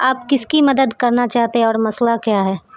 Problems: none marked